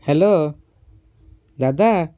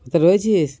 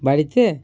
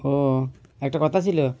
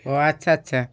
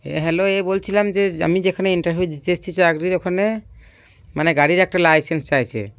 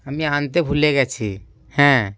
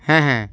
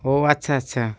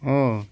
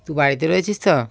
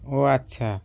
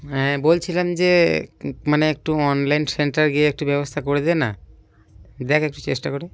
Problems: none marked